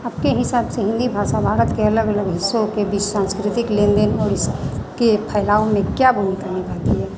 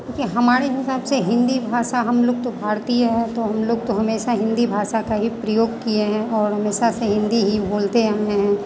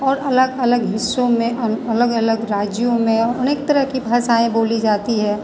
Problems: constant background noise